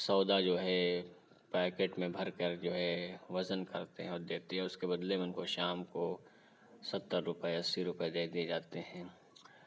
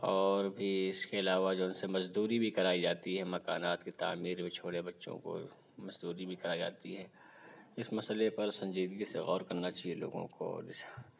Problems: none marked